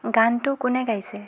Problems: none marked